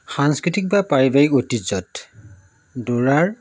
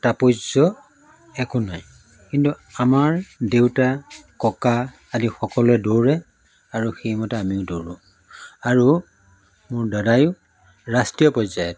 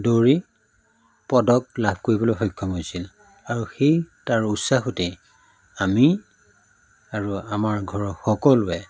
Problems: background sounds at intervals, background conversations at intervals